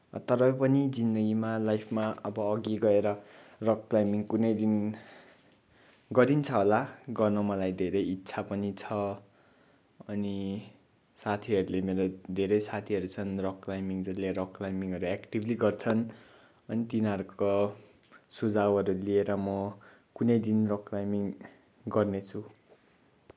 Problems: background sounds at intervals